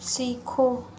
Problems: constant background noise